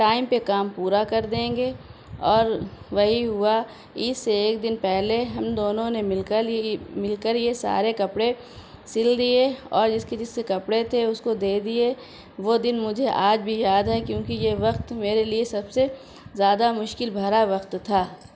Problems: none marked